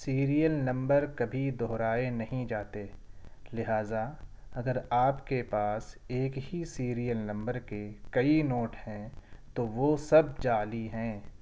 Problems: none marked